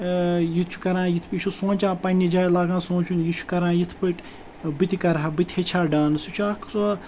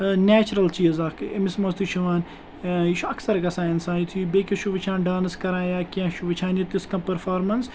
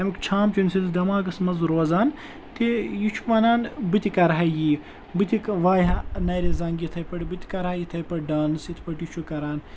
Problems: none marked